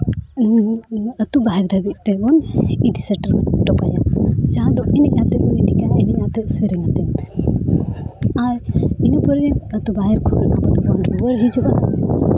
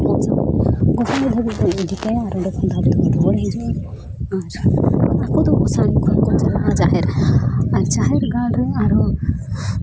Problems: none marked